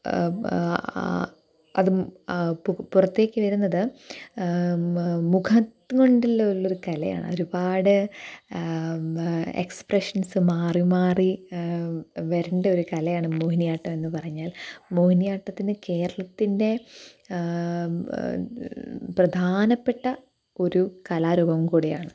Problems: none marked